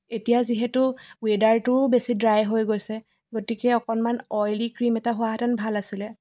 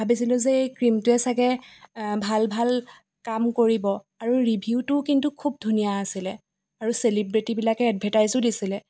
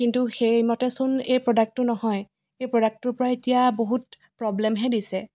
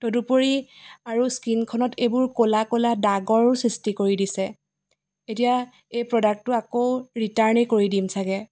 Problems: background sounds at intervals